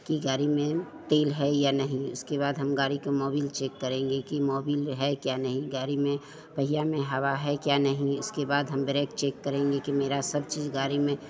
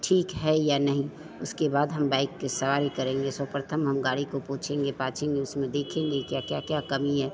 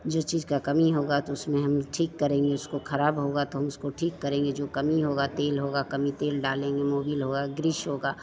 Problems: constant background noise, continuous background conversations